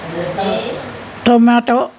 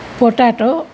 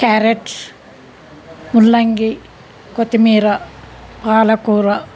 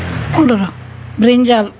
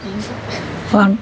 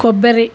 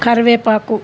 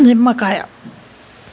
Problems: background conversations at intervals